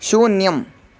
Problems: constant background noise